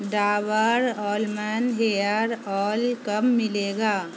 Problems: constant background noise